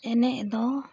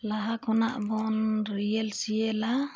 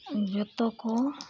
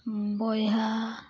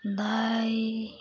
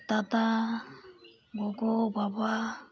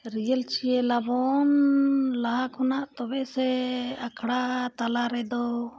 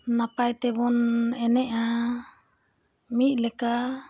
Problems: background sounds at intervals